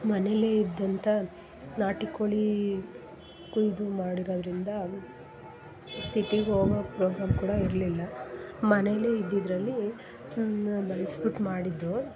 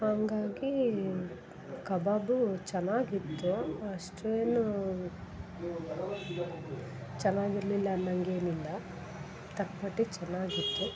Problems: background sounds at intervals, background conversations at intervals